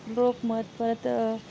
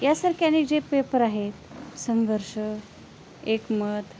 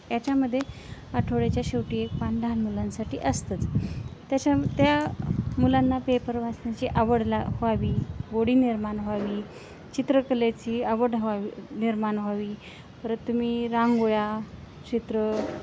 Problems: constant background noise, background conversations at intervals